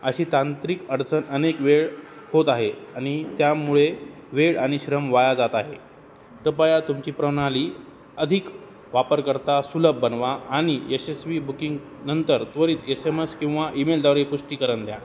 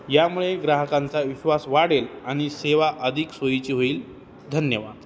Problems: none marked